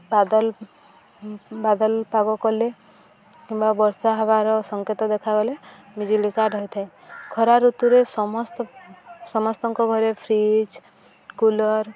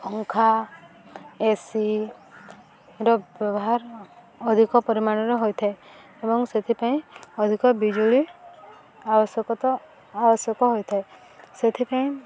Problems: none marked